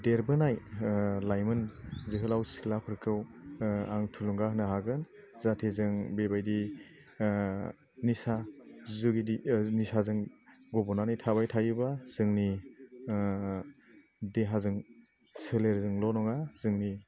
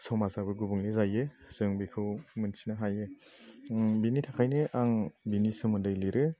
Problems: low volume